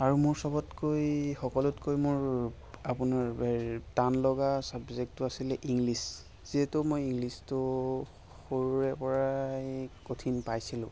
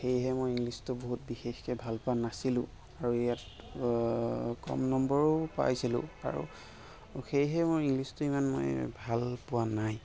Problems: background sounds at intervals